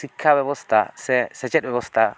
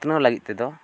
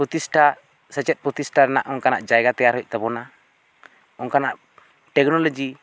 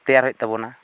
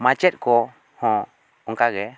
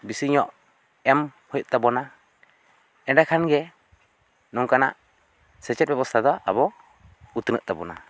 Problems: none marked